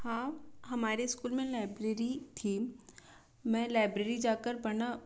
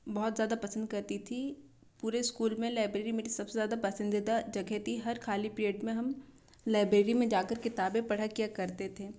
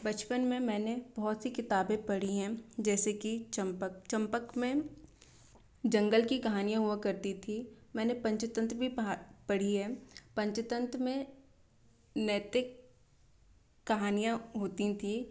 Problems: constant background noise